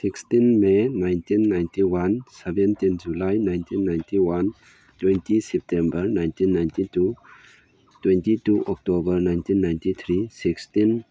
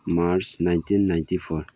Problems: background sounds at intervals